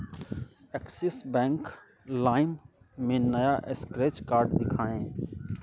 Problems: constant background noise